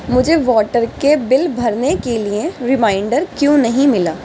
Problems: constant background noise